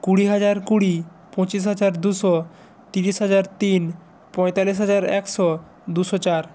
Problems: none marked